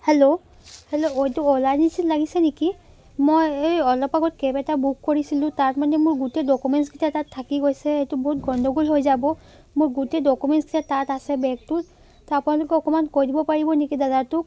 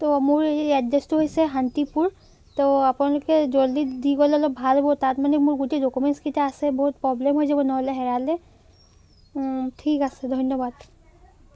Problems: constant background noise, background conversations at intervals